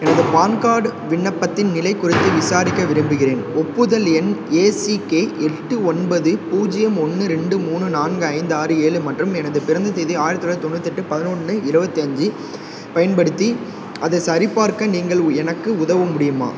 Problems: constant background noise